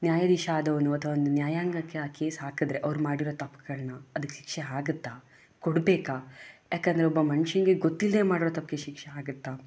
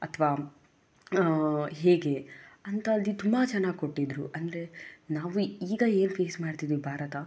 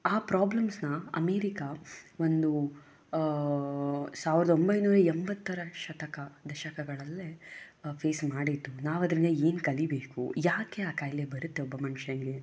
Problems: none marked